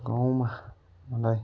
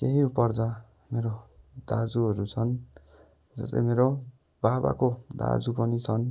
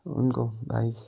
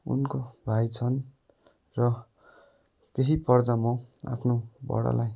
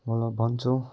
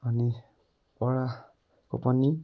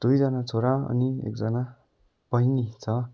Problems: none marked